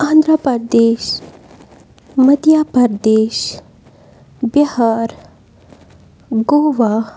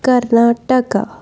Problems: constant background noise